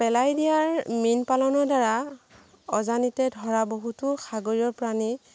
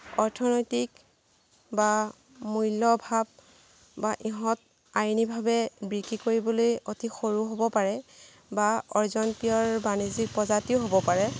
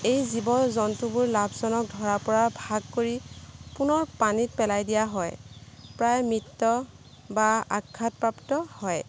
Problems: background sounds at intervals